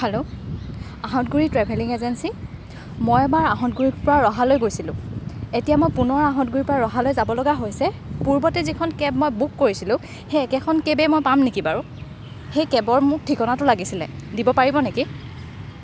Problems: background sounds at intervals